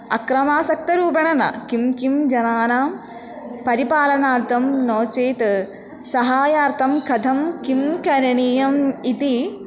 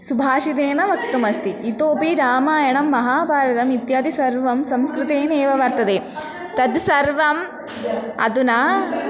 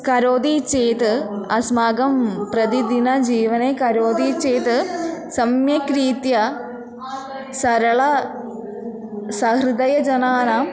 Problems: continuous background conversations